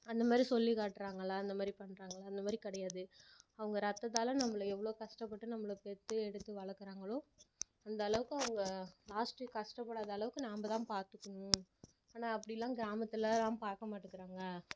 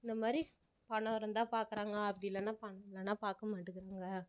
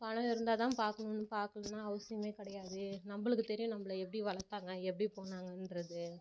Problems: low volume